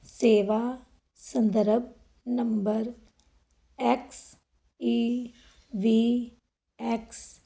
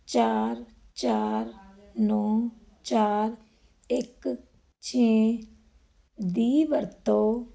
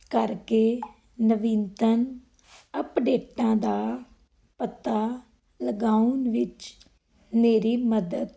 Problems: background sounds at intervals